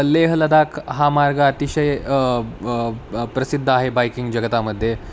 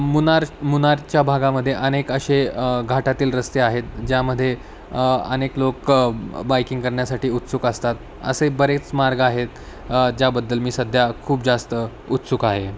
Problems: constant background noise